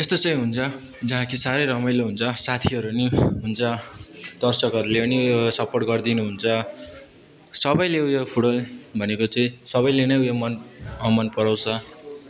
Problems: background conversations at intervals